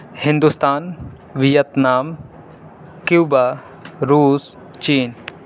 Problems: none marked